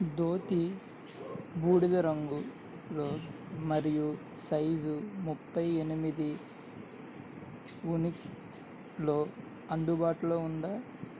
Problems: none marked